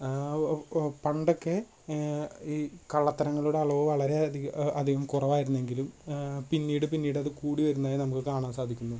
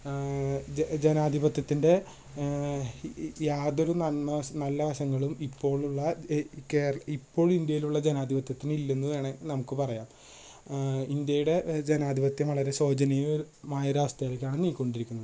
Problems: low volume